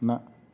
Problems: background sounds at intervals